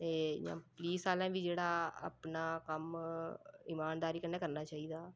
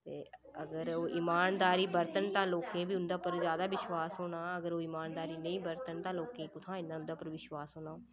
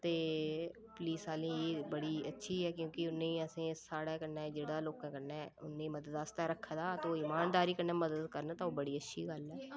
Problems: low volume